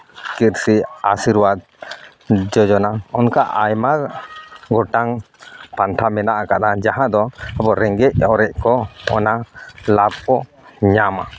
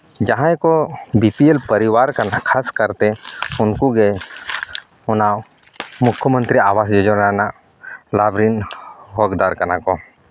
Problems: none marked